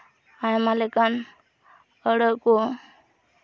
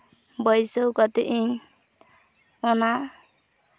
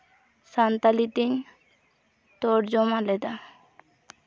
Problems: none marked